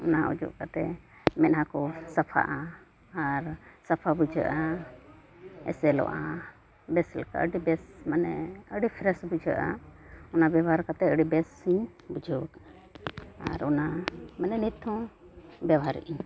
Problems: none marked